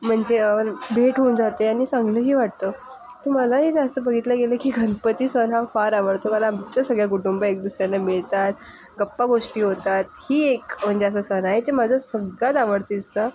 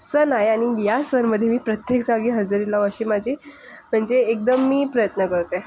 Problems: background sounds at intervals